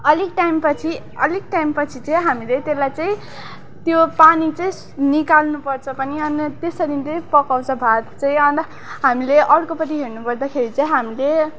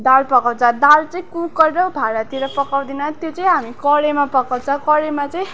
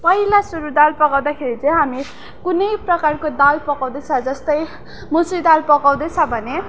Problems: background sounds at intervals